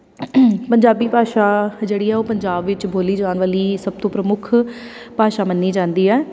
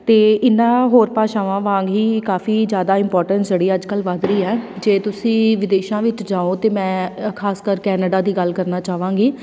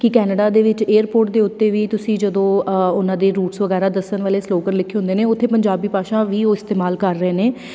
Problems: background sounds at intervals